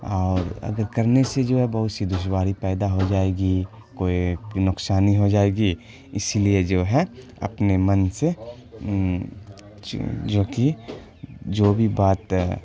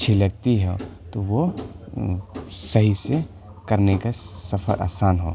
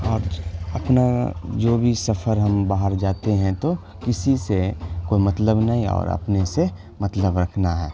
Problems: constant background noise